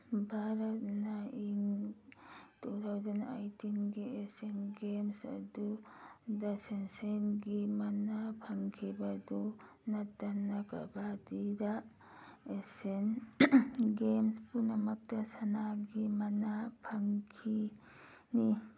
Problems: background sounds at intervals